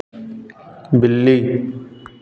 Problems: constant background noise, continuous background conversations